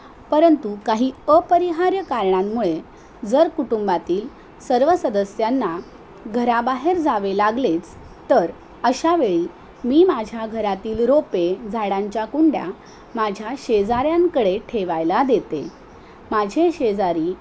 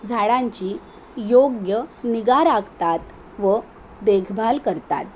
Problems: none marked